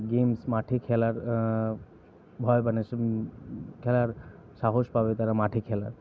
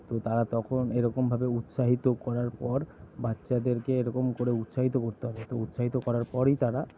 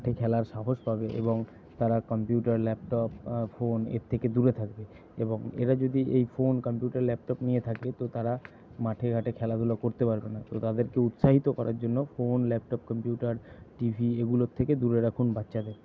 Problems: none marked